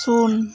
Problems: none marked